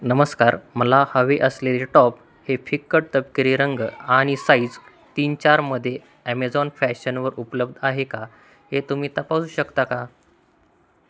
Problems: constant background noise, background conversations at intervals